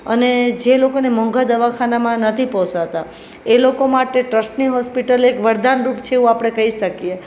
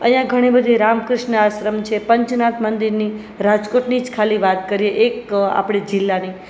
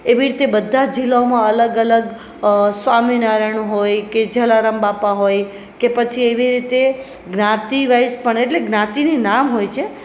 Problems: none marked